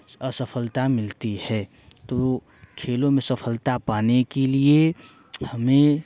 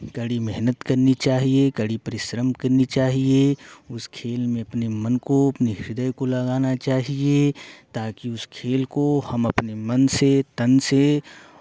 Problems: constant background noise